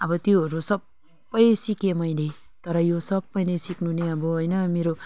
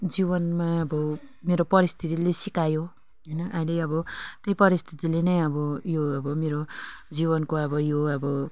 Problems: background conversations at intervals